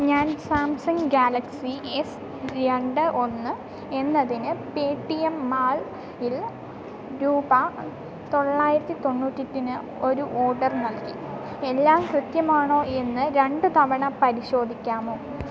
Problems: none marked